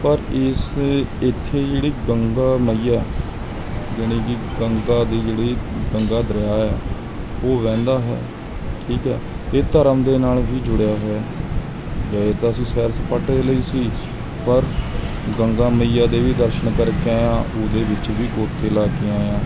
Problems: constant background noise